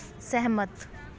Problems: background conversations at intervals